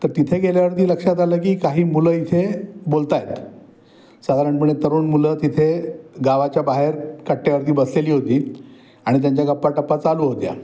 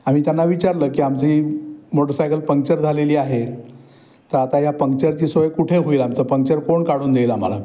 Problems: background sounds at intervals, background conversations at intervals